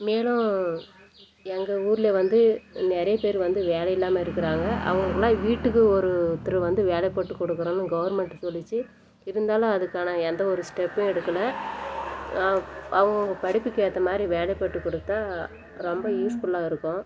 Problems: constant background noise